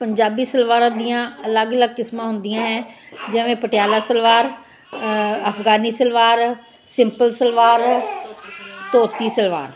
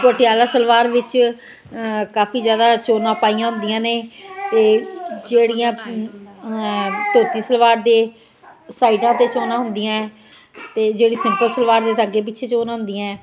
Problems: constant background noise, continuous background conversations